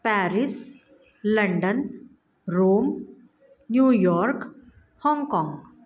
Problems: background sounds at intervals